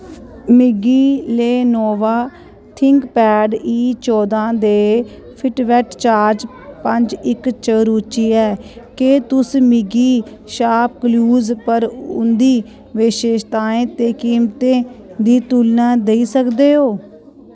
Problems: constant background noise